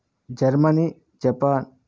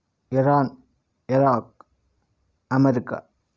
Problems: none marked